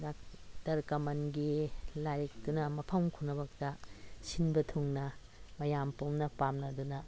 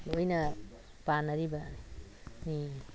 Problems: constant background noise